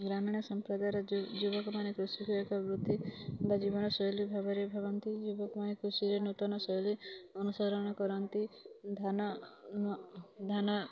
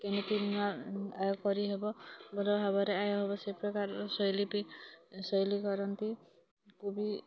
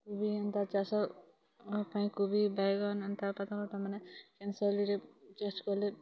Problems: constant background noise, continuous background conversations